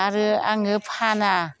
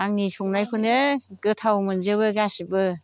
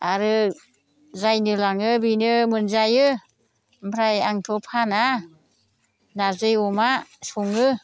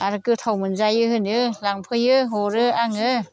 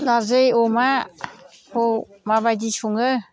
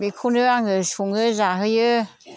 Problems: constant background noise